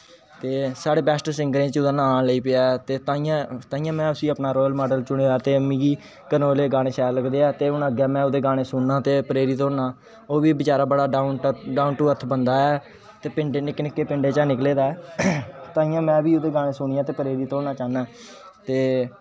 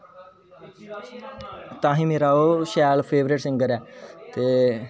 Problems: constant background noise